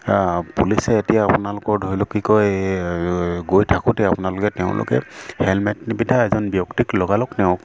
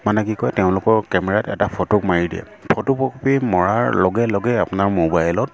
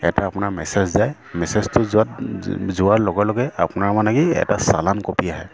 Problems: constant background noise